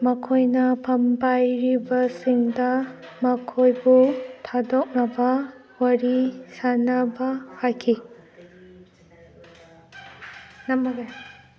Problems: background conversations at intervals